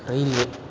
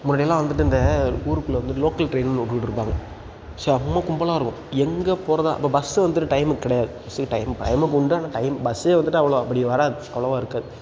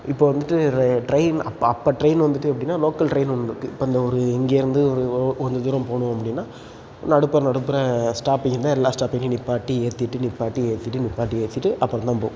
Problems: background sounds at intervals